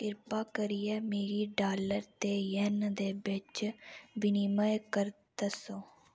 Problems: none marked